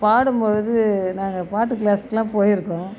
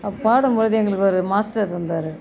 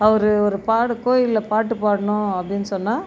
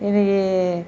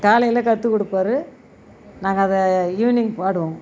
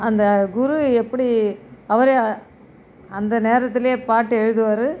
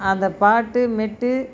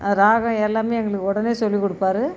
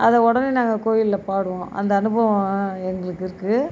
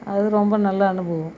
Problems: none marked